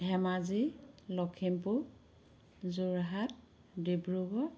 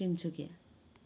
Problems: continuous background conversations